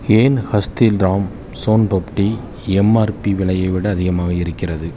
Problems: constant background noise